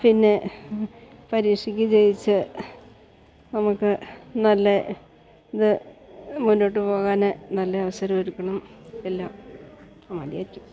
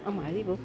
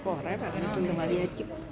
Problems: background sounds at intervals, background conversations at intervals